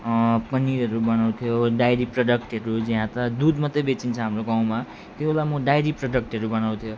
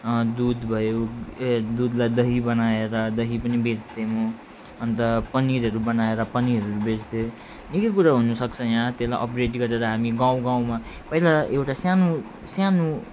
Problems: none marked